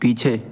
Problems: constant background noise